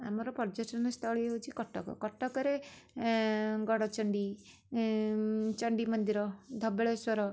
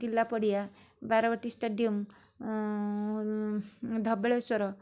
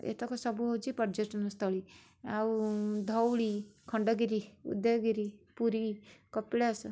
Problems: none marked